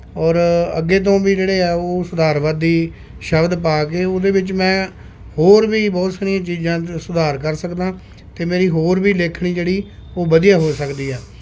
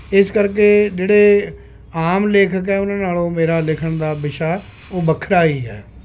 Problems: constant background noise